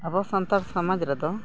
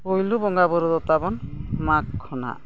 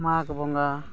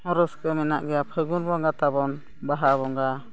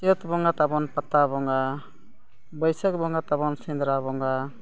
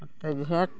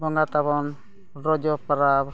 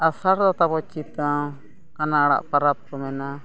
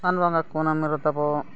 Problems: background sounds at intervals, continuous background conversations